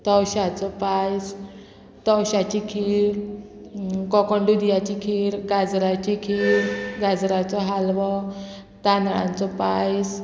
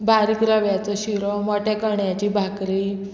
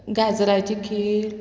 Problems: constant background noise